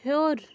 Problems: none marked